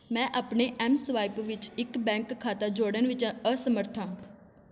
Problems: constant background noise